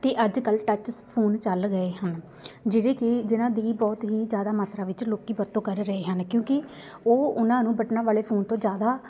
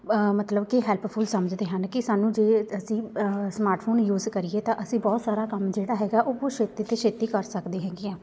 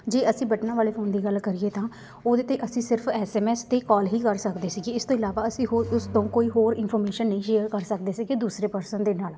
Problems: constant background noise, background conversations at intervals